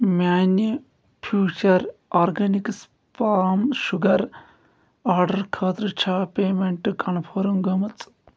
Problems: none marked